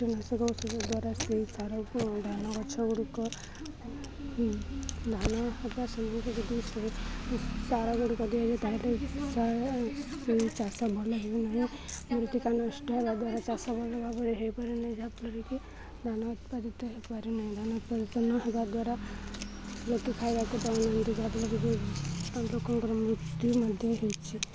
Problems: constant background noise, continuous background conversations